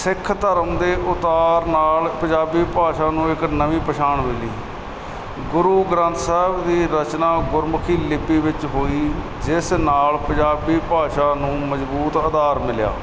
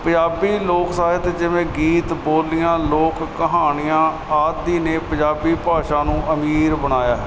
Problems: none marked